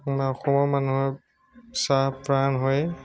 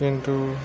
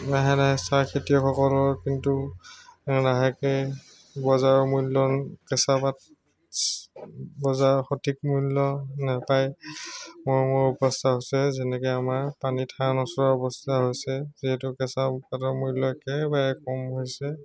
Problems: constant background noise, background conversations at intervals